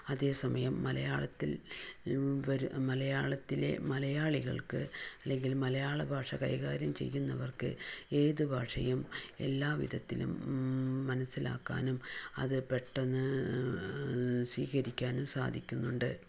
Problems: low volume